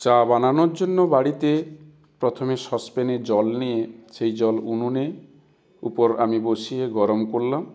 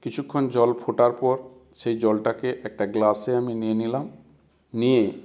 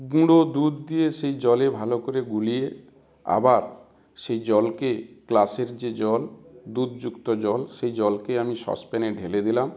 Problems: constant background noise